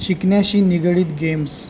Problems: constant background noise